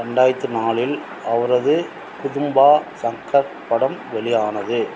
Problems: constant background noise